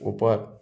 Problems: low volume